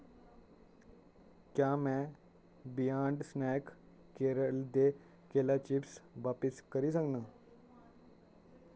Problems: none marked